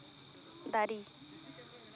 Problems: none marked